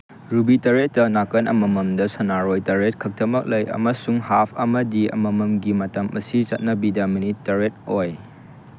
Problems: constant background noise